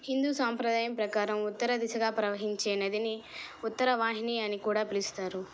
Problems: background conversations at intervals